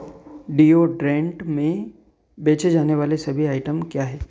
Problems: background sounds at intervals